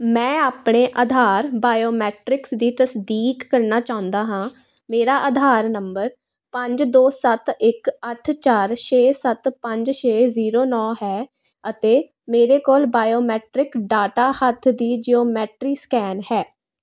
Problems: constant background noise